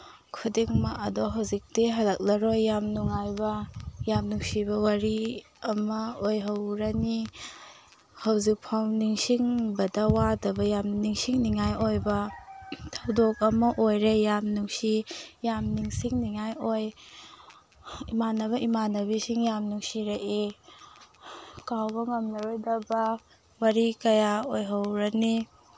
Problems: background sounds at intervals